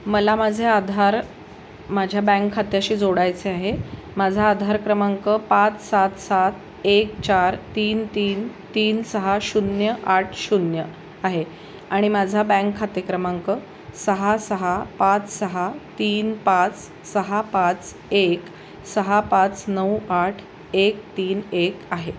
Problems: none marked